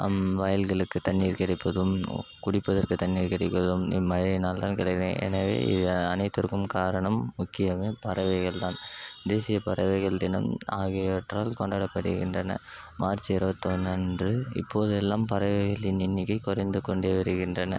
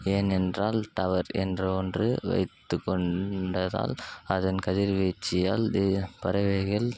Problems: constant background noise